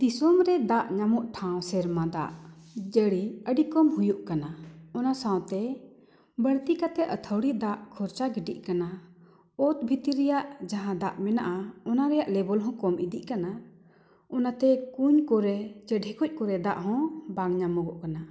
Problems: none marked